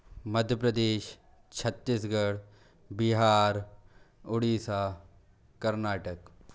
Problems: none marked